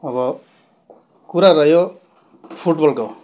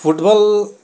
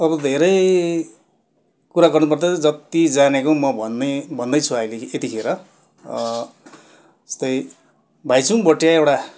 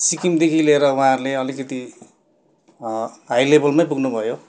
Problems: constant background noise